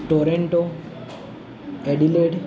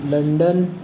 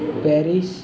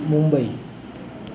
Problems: constant background noise